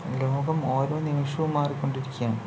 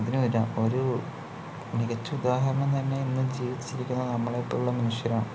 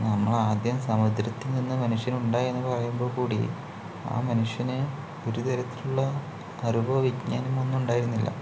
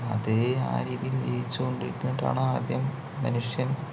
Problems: low volume